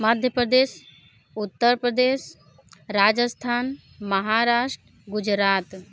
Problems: constant background noise